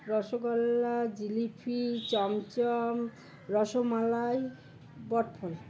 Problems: constant background noise